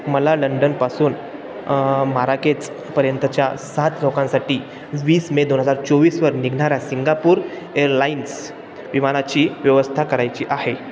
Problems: constant background noise